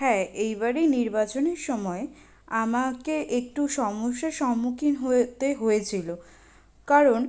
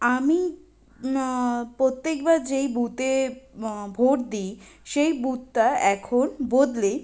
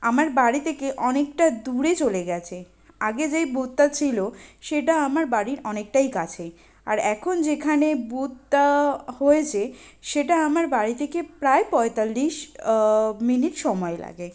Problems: constant background noise